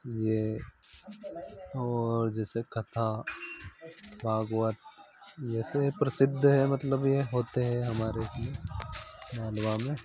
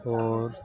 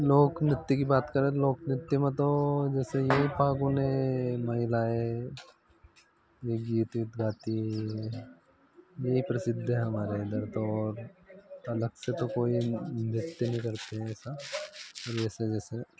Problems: none marked